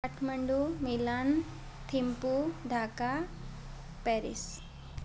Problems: constant background noise